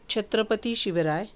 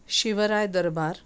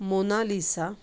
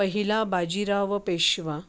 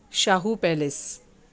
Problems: background sounds at intervals